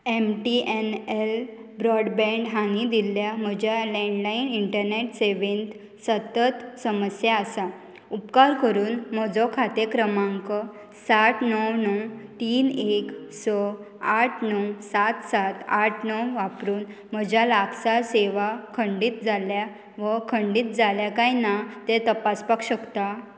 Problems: constant background noise